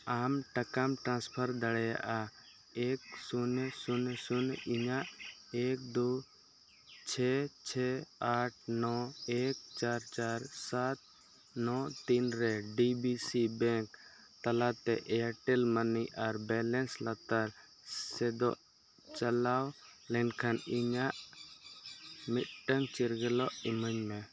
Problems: constant background noise